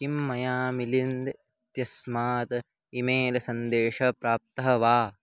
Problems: none marked